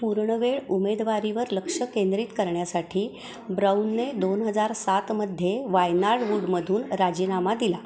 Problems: constant background noise, continuous background conversations